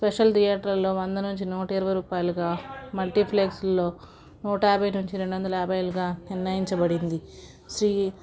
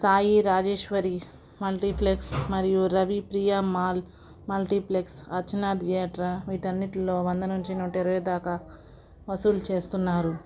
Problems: background sounds at intervals, background conversations at intervals